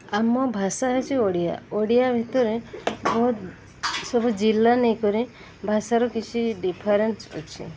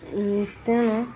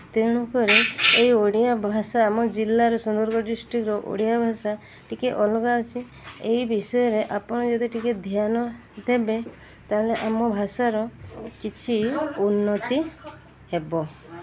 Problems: constant background noise, background conversations at intervals